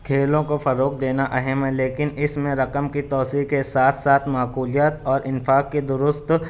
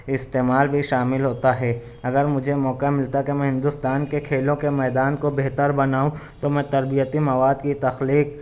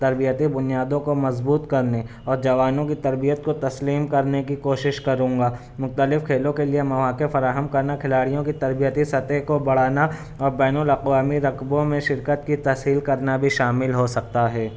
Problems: none marked